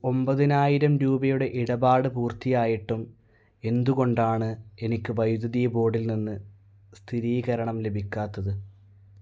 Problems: none marked